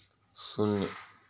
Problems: constant background noise, low volume